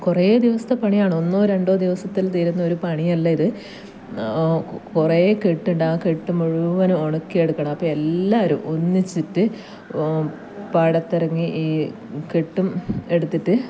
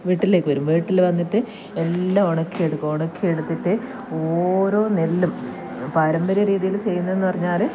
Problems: background sounds at intervals